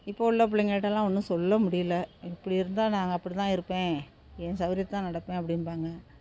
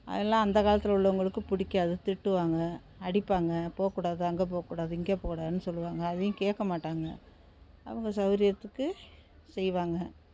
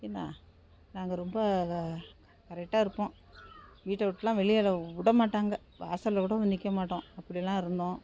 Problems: none marked